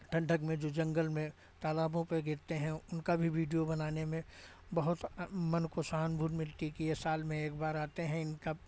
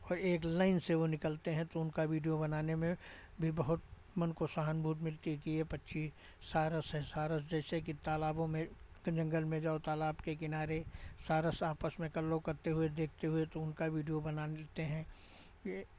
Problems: none marked